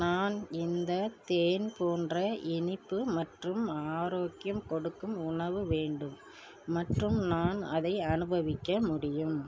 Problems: low volume